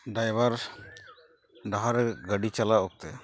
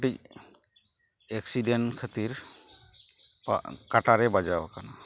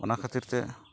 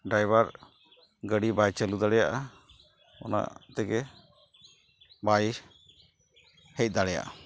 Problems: background sounds at intervals